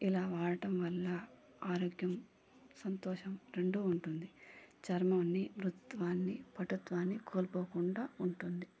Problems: low volume